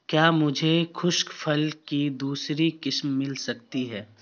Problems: constant background noise